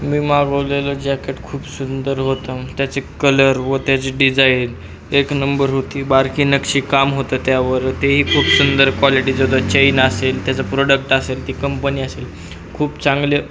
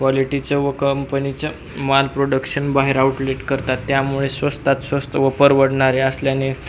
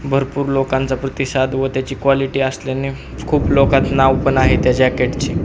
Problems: constant background noise